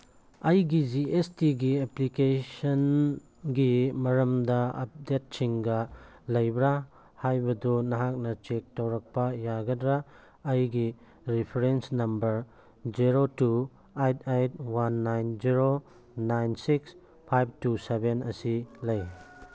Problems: background sounds at intervals